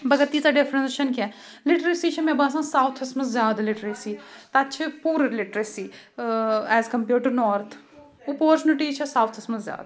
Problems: none marked